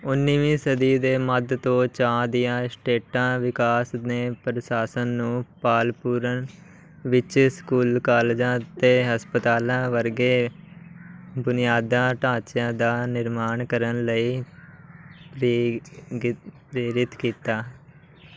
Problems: background sounds at intervals, background conversations at intervals